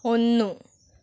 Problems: constant background noise